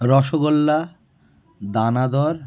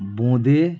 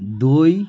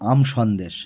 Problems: background conversations at intervals